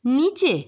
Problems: constant background noise